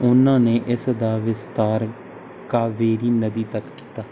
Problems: none marked